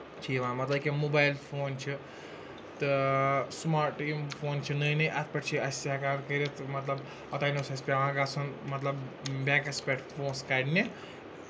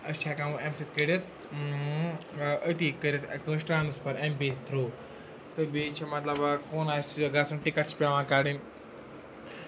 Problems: constant background noise